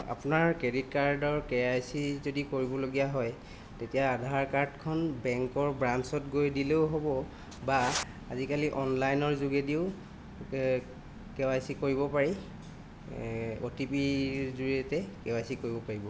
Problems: constant background noise